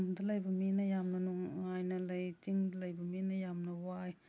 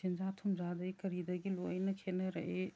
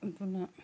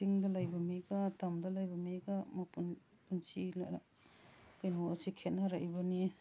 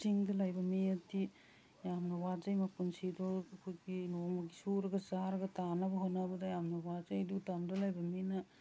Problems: none marked